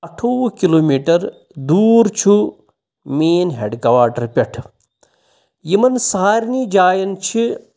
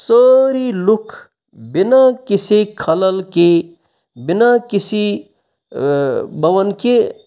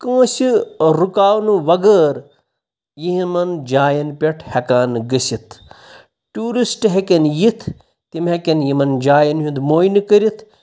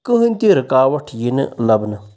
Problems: none marked